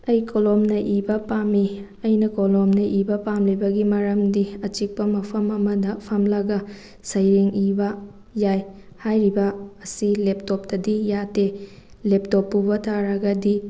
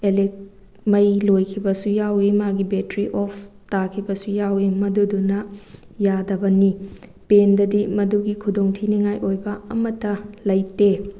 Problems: none marked